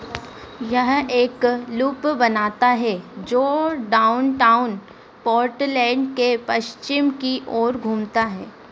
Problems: none marked